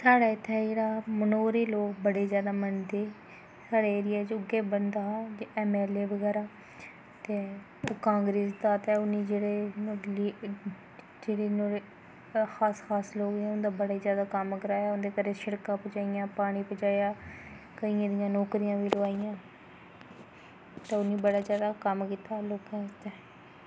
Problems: constant background noise